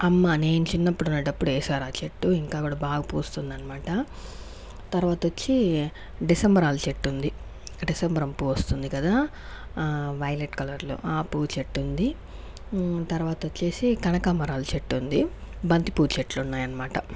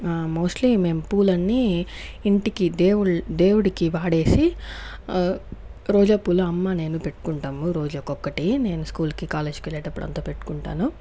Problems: background sounds at intervals